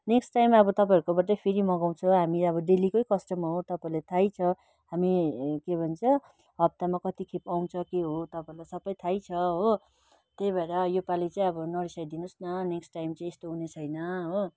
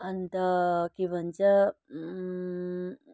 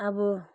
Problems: constant background noise